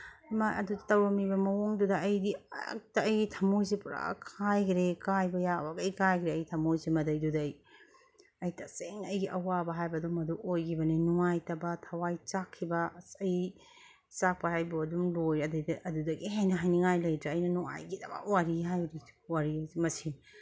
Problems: none marked